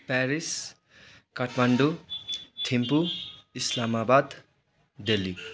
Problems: constant background noise